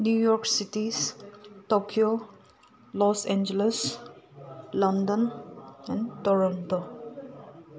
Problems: constant background noise